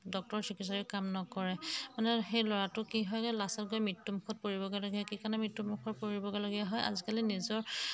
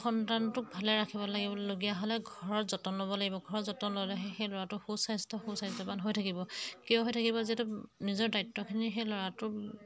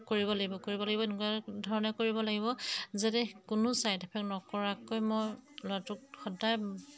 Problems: background sounds at intervals